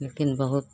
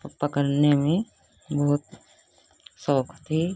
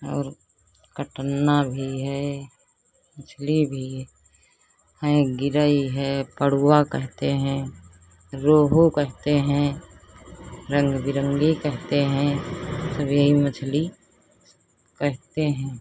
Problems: constant background noise